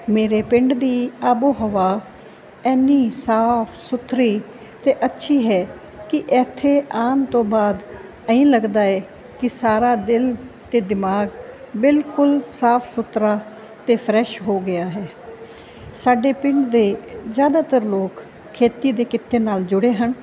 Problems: none marked